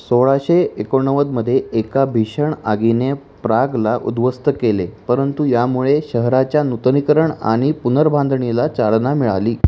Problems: constant background noise